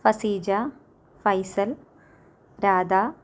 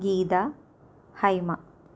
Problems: low volume